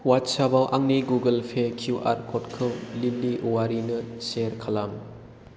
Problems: constant background noise